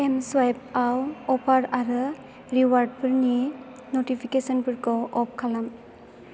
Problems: constant background noise